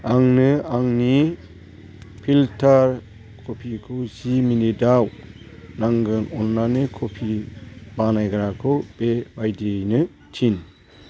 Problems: constant background noise